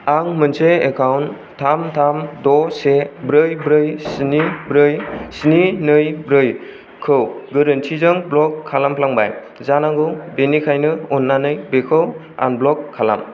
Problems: none marked